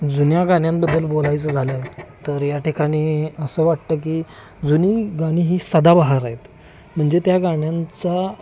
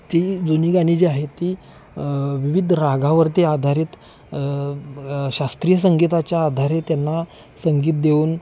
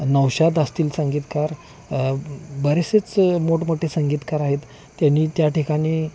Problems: constant background noise, background conversations at intervals